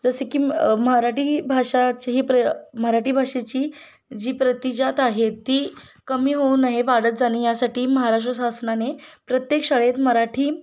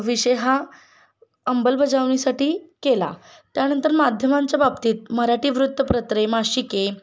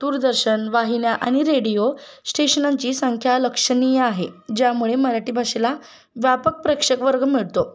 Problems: constant background noise